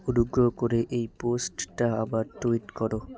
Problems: constant background noise, continuous background conversations